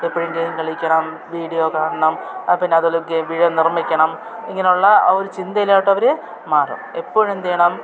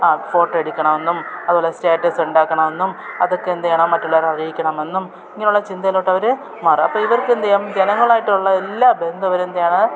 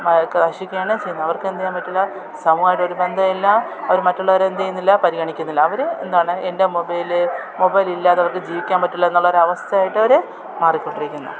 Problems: continuous background conversations